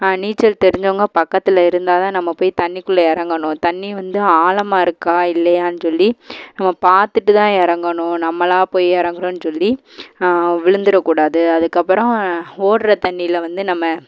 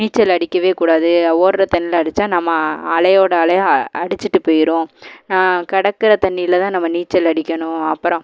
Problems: none marked